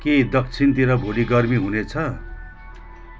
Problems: continuous background conversations